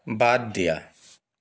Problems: none marked